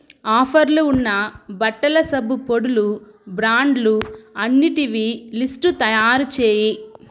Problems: background sounds at intervals